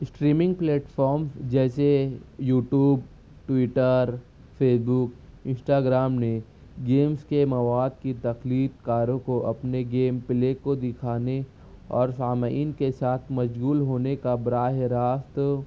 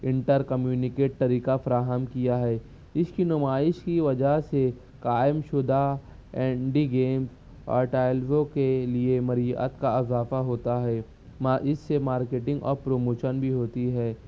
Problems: constant background noise, low volume